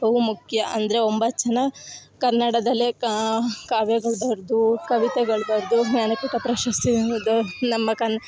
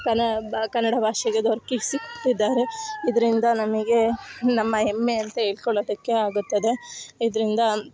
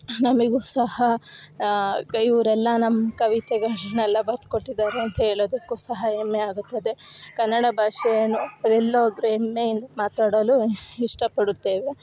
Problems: background sounds at intervals